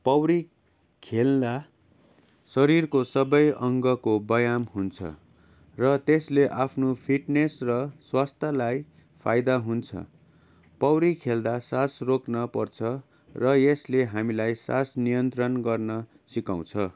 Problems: constant background noise